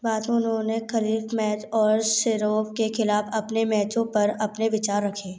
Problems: constant background noise